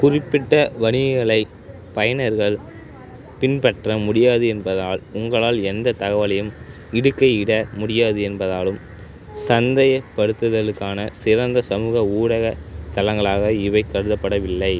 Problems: background conversations at intervals